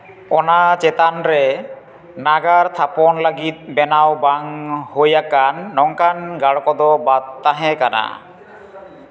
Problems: background sounds at intervals, echo